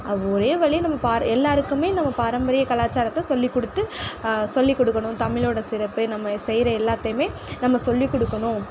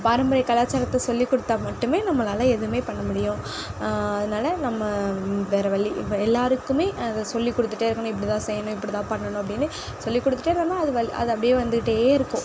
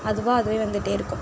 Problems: background sounds at intervals